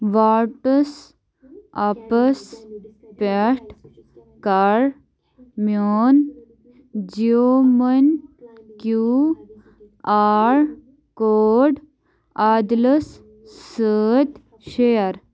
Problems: background sounds at intervals